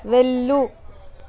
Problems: constant background noise